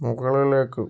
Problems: none marked